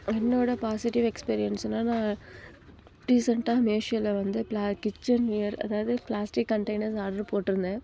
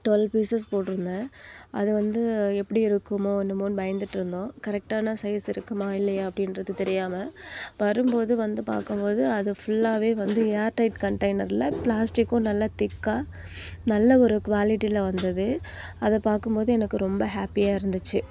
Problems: background sounds at intervals